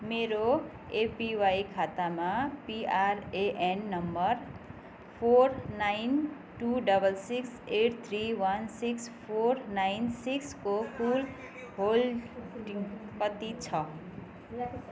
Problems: constant background noise